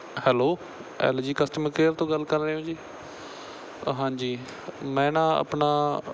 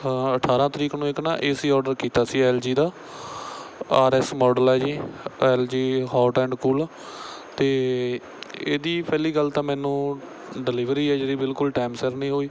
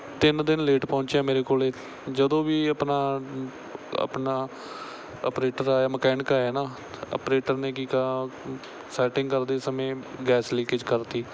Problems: background sounds at intervals